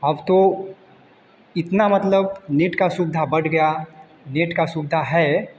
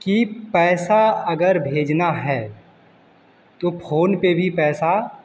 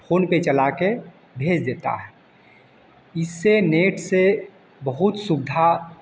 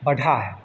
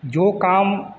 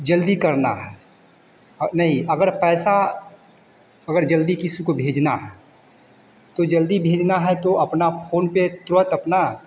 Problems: none marked